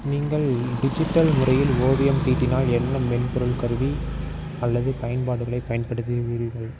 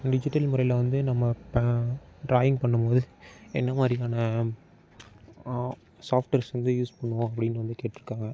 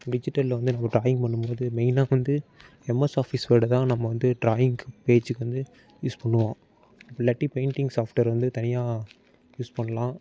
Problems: background sounds at intervals